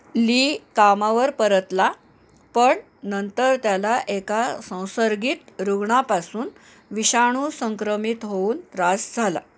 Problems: background sounds at intervals